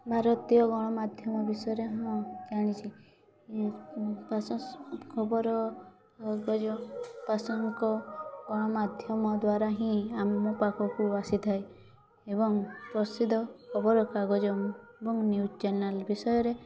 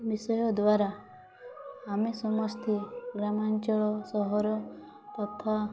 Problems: constant background noise